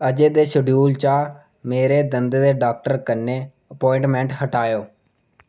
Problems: none marked